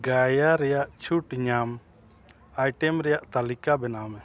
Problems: none marked